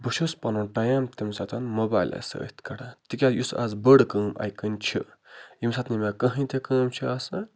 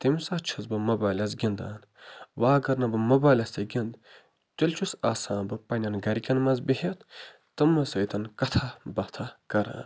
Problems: constant background noise